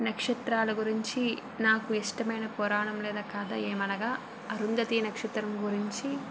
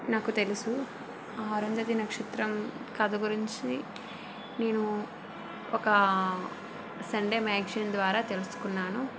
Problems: constant background noise